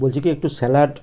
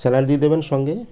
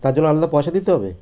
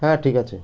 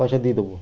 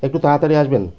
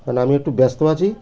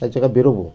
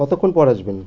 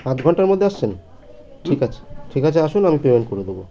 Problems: constant background noise, background conversations at intervals